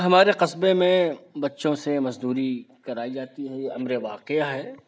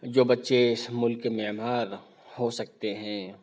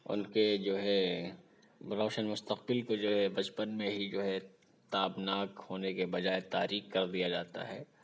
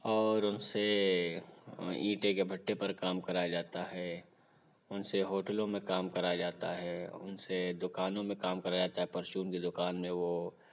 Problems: none marked